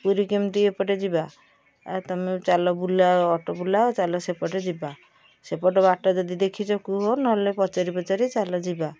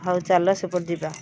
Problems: background sounds at intervals